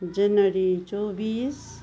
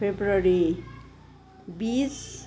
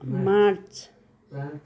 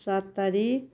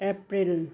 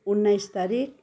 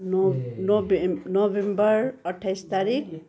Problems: background conversations at intervals